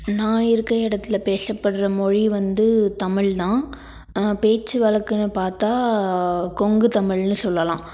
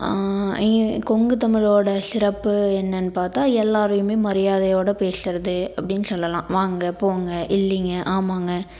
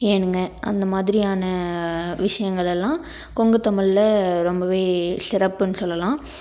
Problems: none marked